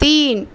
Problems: constant background noise